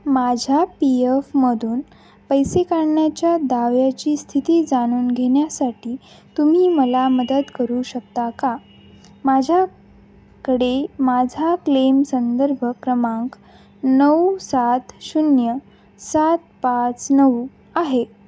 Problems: constant background noise